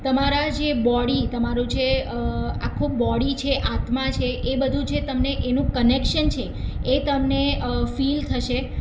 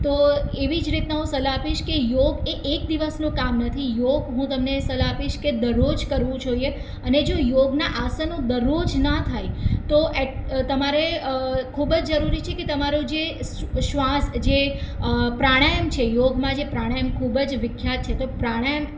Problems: none marked